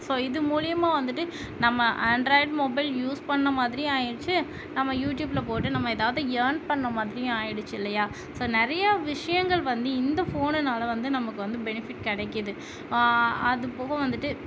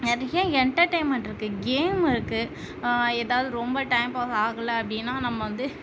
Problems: constant background noise